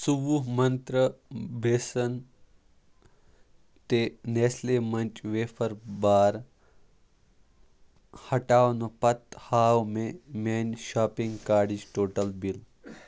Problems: background sounds at intervals